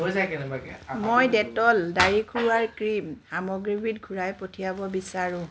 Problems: background sounds at intervals, background conversations at intervals